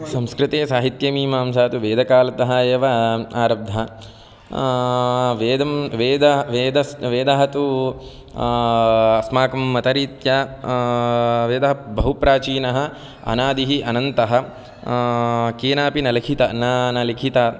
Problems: none marked